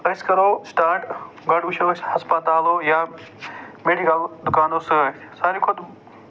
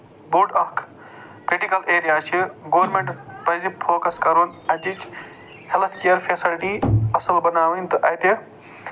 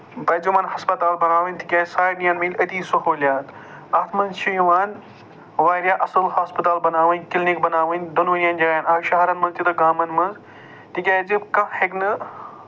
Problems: none marked